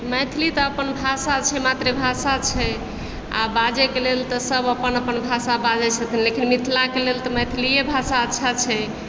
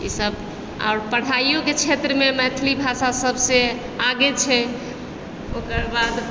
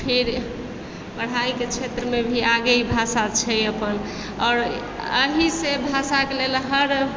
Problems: background sounds at intervals